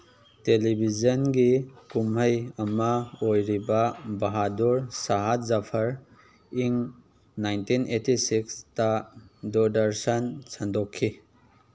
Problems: background sounds at intervals